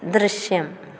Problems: none marked